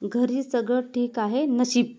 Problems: constant background noise